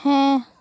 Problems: none marked